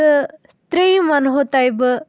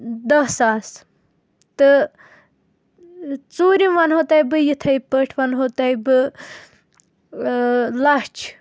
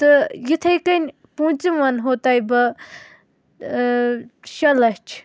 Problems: background sounds at intervals